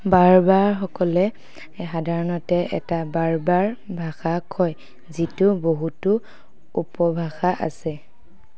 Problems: none marked